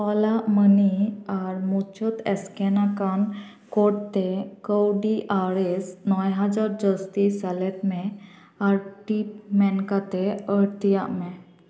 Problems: echo